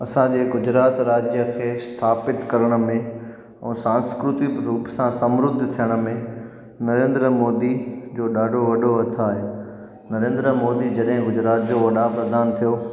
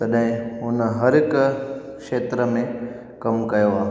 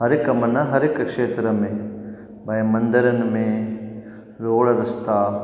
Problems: constant background noise, echo